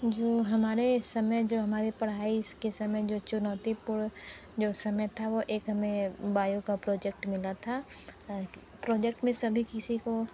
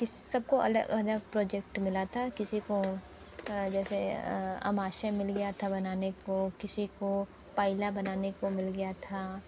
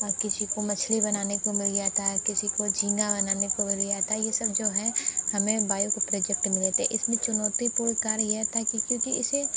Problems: constant background noise, continuous background conversations